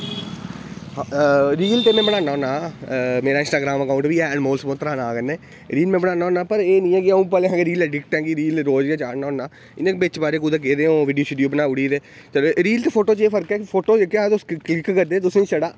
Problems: constant background noise